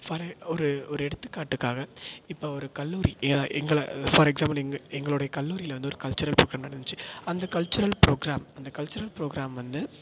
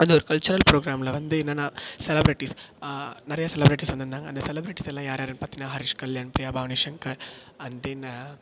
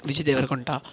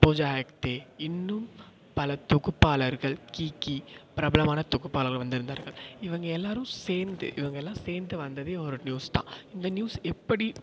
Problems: echo